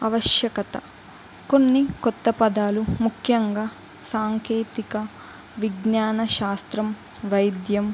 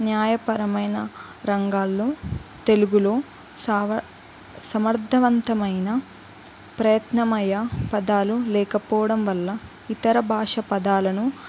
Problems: constant background noise, background conversations at intervals